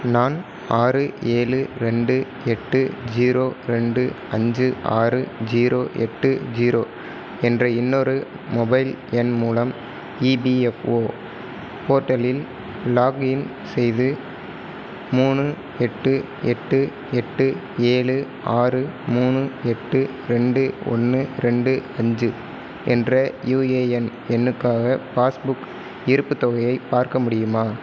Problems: constant background noise